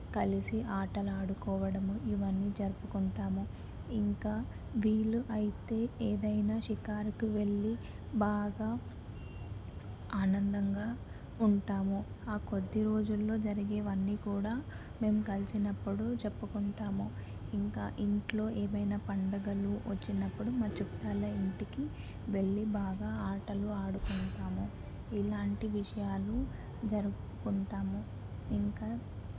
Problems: constant background noise, low volume